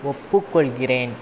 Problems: constant background noise